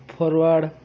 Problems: constant background noise